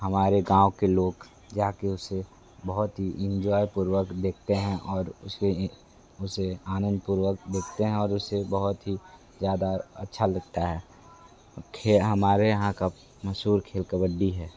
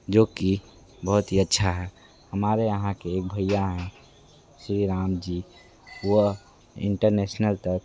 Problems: constant background noise, continuous background conversations